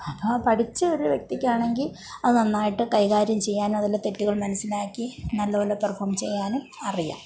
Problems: background sounds at intervals